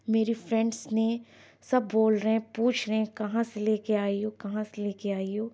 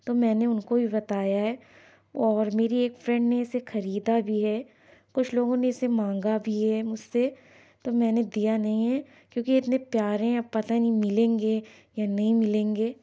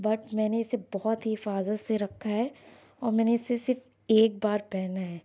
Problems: background sounds at intervals